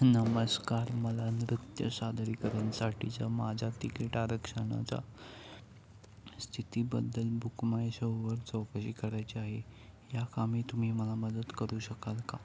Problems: none marked